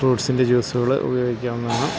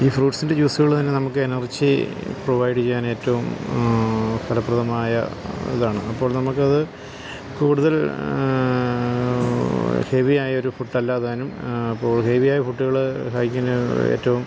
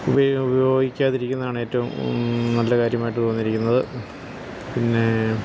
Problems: constant background noise